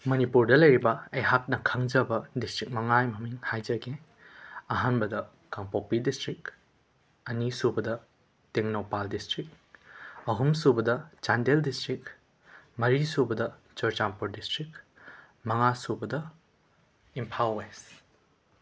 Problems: background sounds at intervals